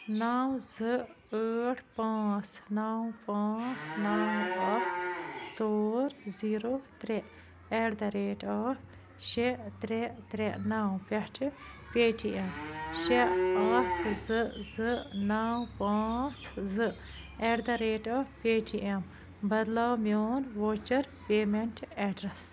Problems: constant background noise